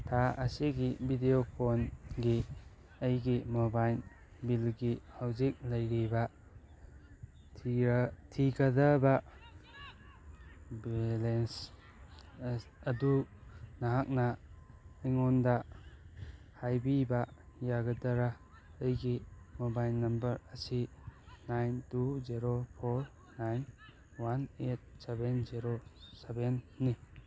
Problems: background sounds at intervals, background conversations at intervals